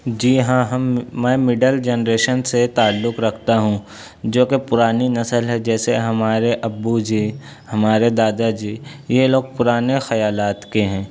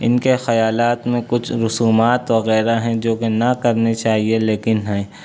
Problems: background sounds at intervals